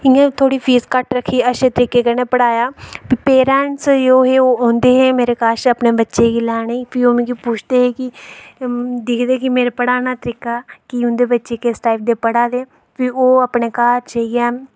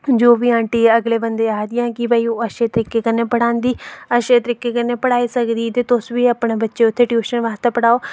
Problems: none marked